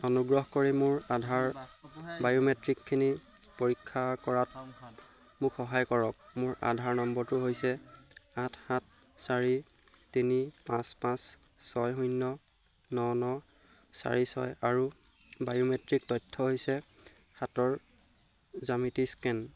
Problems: constant background noise